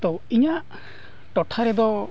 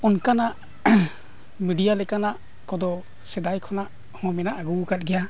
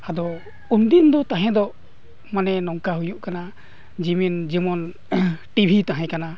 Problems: none marked